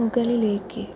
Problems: constant background noise